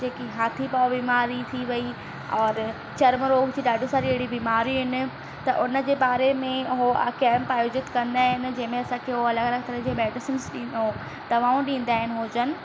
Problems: constant background noise